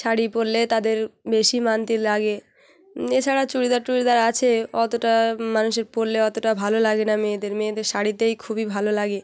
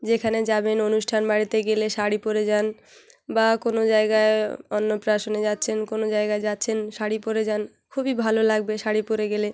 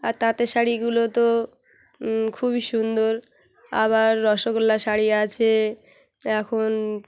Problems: background sounds at intervals, background conversations at intervals